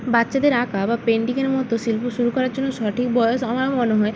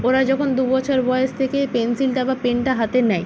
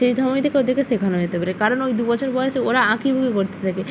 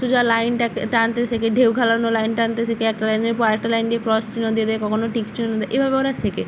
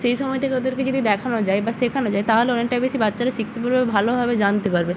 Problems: none marked